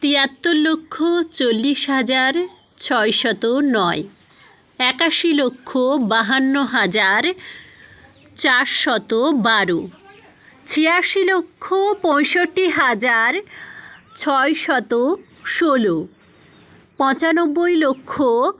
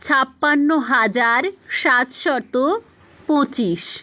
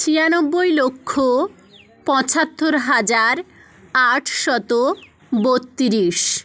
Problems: none marked